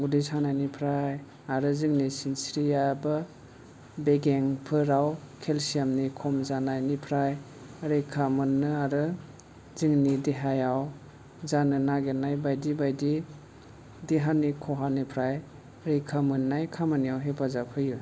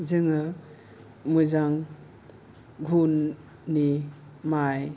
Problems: none marked